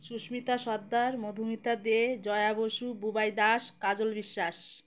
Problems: constant background noise